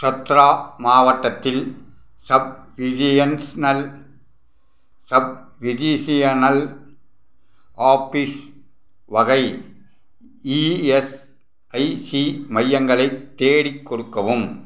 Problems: none marked